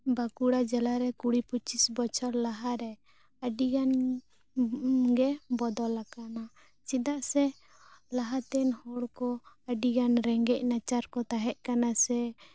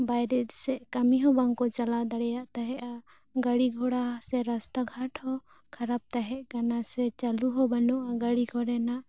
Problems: none marked